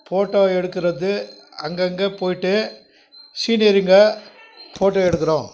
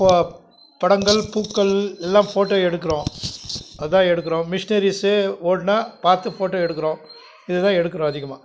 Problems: constant background noise